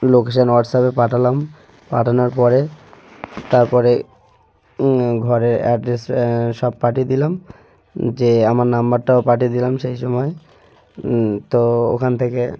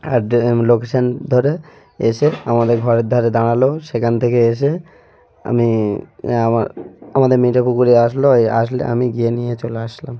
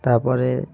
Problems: constant background noise, background conversations at intervals